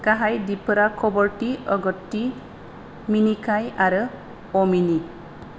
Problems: none marked